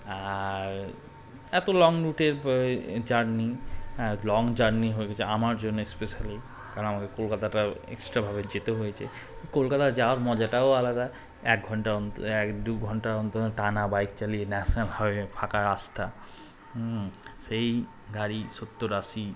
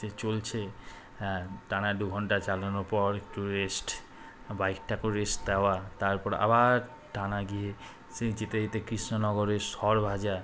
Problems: none marked